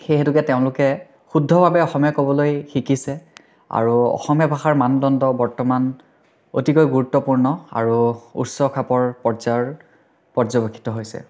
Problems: background sounds at intervals